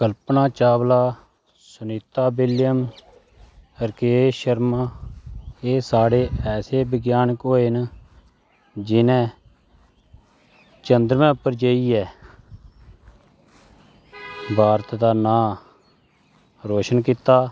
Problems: constant background noise